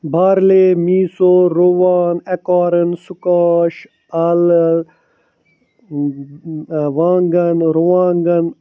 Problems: none marked